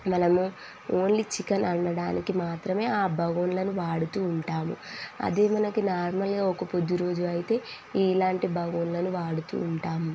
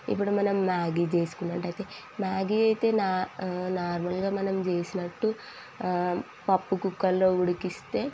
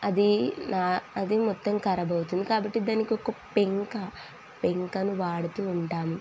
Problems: none marked